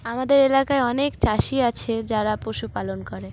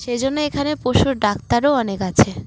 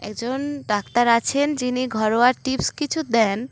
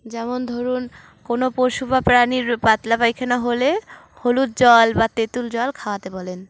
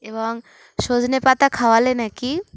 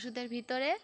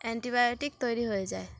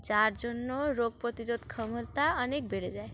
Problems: constant background noise, background conversations at intervals